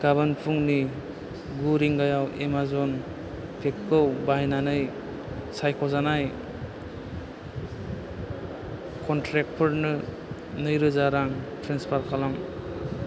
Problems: low volume